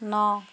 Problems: none marked